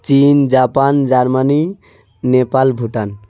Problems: constant background noise, background conversations at intervals